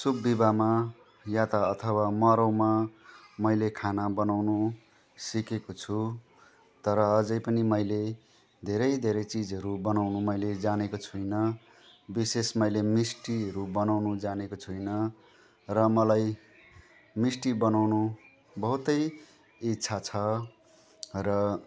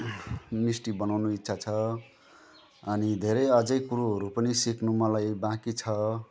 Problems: background conversations at intervals